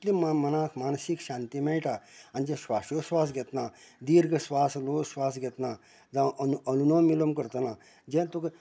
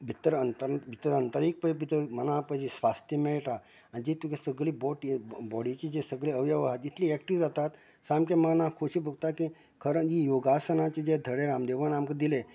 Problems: constant background noise